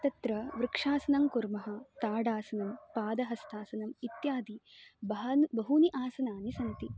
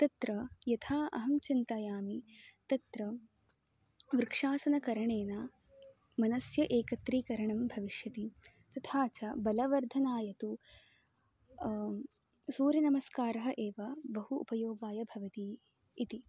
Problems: constant background noise